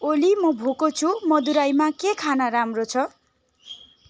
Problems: constant background noise, continuous background conversations